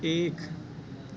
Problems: constant background noise